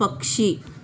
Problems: constant background noise